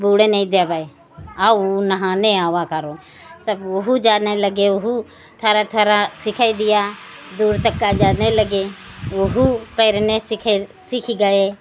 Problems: constant background noise